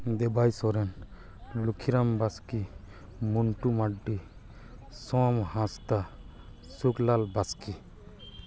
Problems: background conversations at intervals